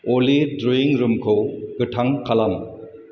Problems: constant background noise